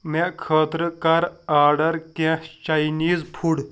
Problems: none marked